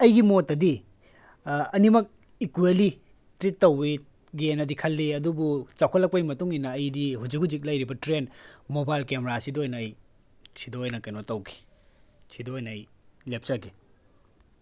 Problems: none marked